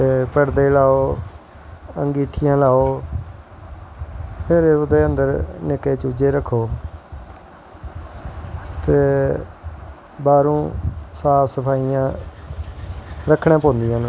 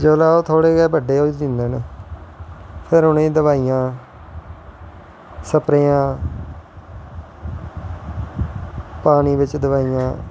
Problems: constant background noise